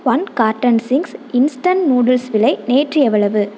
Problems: constant background noise